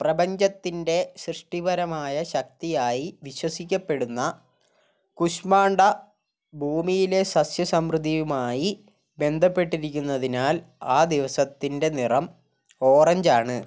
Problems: none marked